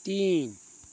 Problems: constant background noise